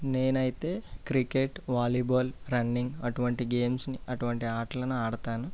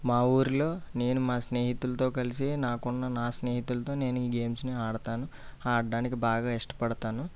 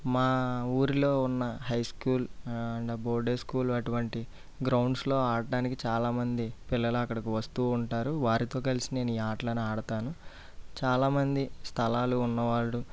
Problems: low volume